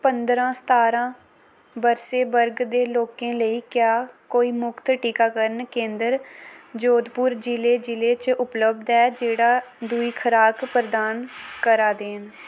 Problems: constant background noise